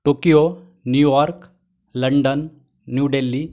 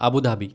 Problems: none marked